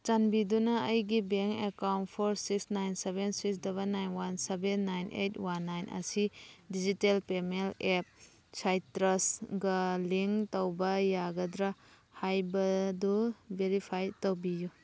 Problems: background sounds at intervals